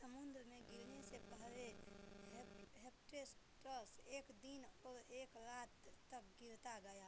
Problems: none marked